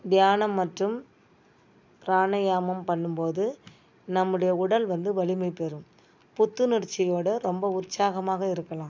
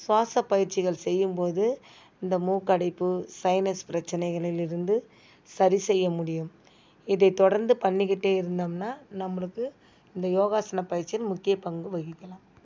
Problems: none marked